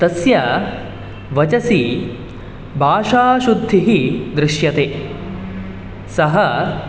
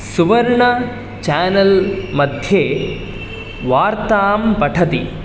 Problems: none marked